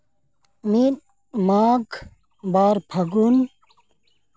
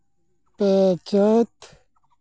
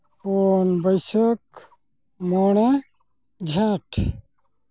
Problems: background sounds at intervals